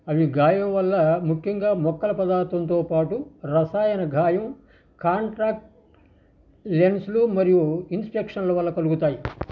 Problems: background sounds at intervals